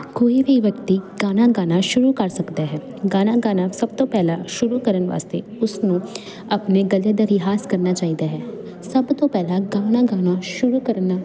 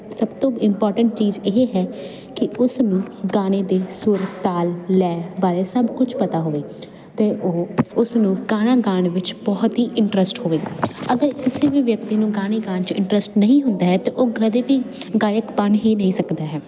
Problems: constant background noise